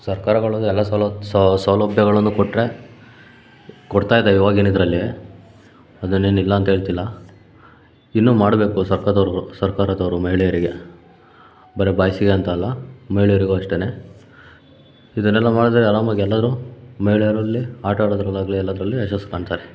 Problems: none marked